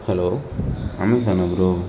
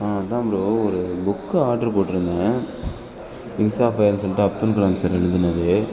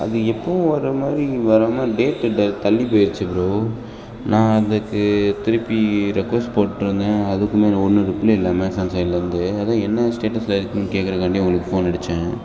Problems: continuous background conversations